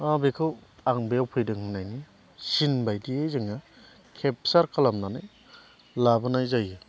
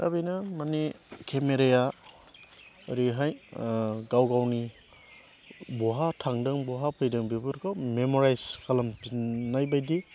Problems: none marked